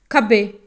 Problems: none marked